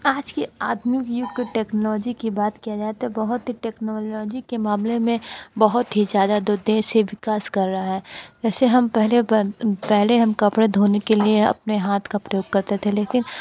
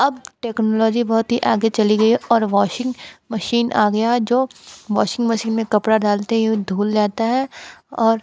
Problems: constant background noise, background conversations at intervals